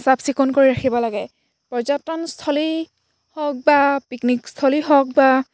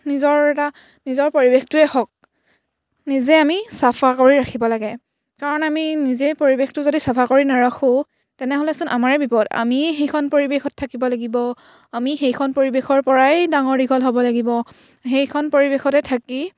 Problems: background sounds at intervals